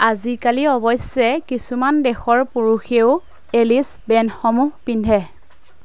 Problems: none marked